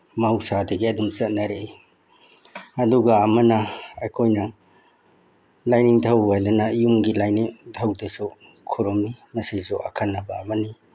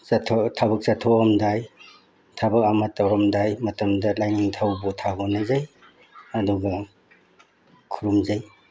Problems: background sounds at intervals